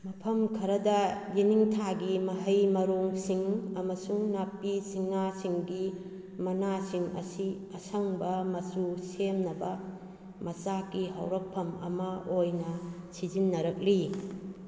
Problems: none marked